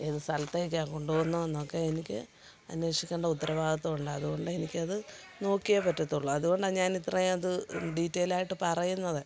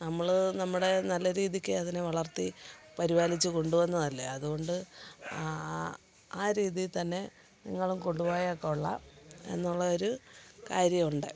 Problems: low volume